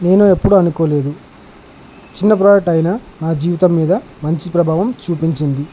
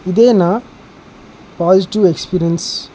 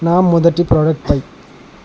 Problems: constant background noise